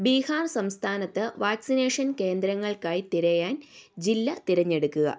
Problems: none marked